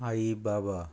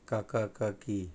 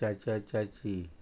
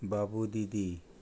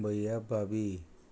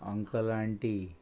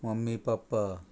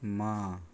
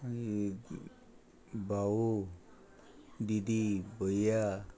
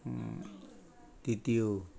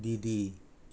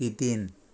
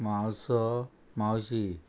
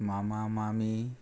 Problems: constant background noise